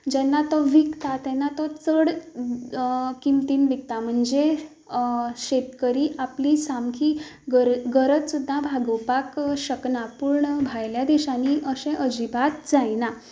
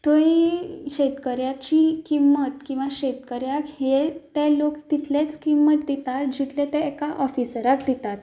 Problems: background sounds at intervals